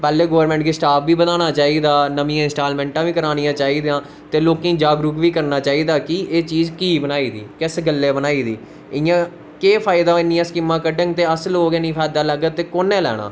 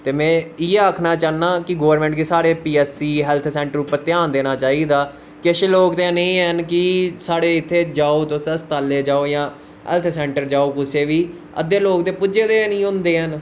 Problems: constant background noise